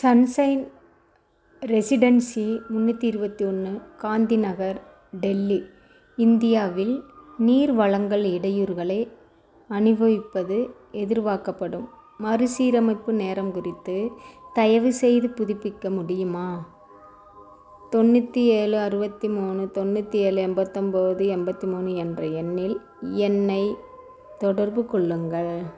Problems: background sounds at intervals